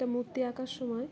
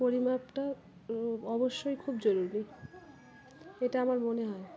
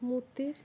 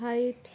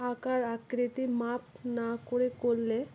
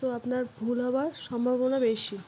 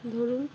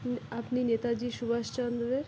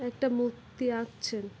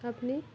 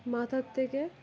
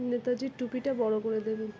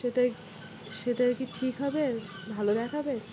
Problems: background sounds at intervals